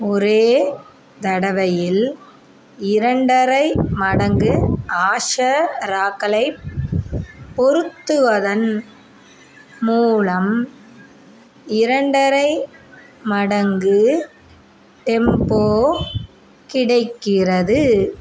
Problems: none marked